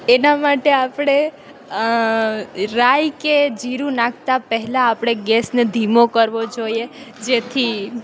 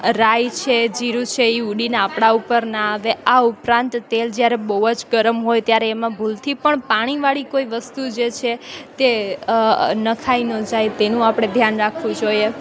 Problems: none marked